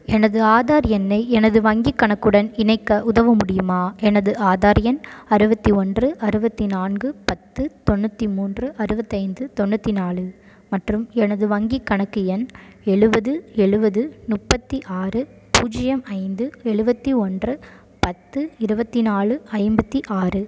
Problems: none marked